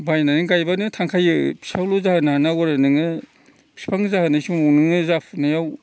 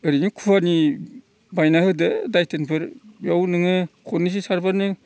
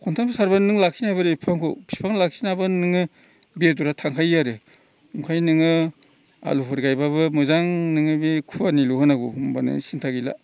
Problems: constant background noise